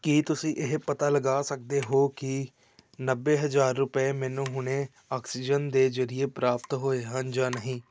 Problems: background sounds at intervals